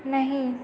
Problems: none marked